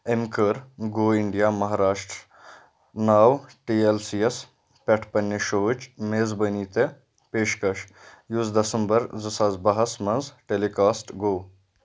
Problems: none marked